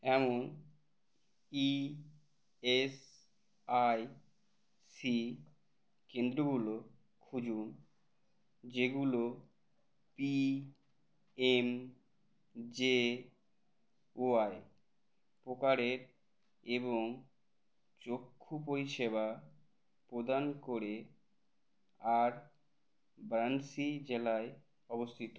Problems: none marked